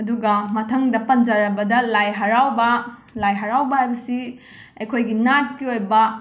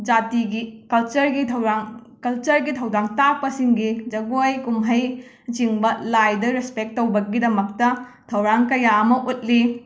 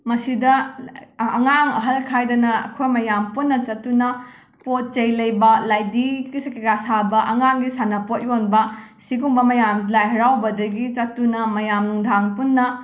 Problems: background sounds at intervals